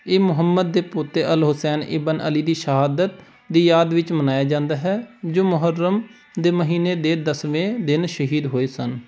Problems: background sounds at intervals